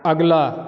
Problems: constant background noise